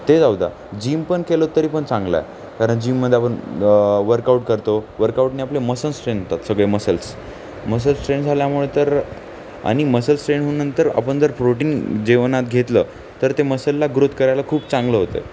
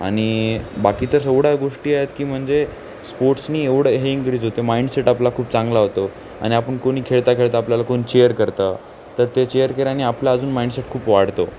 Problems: none marked